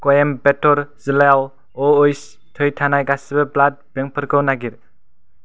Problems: none marked